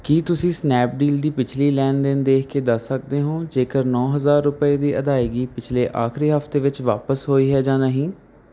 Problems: none marked